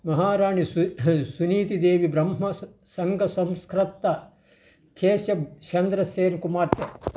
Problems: background sounds at intervals